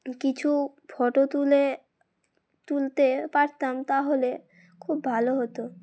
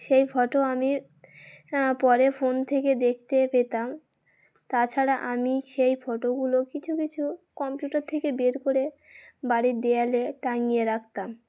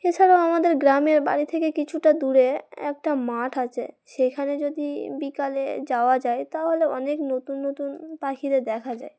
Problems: background sounds at intervals